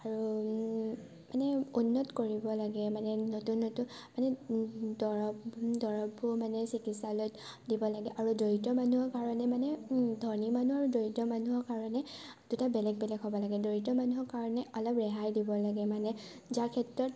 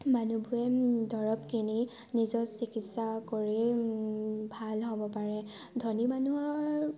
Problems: constant background noise